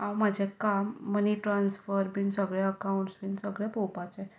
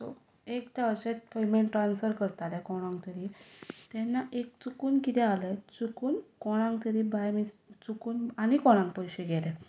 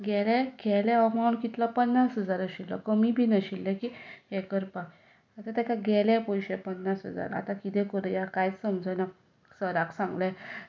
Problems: background sounds at intervals